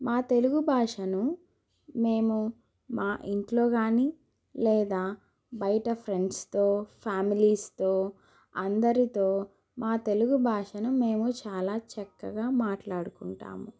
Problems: none marked